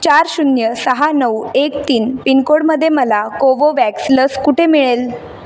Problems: background sounds at intervals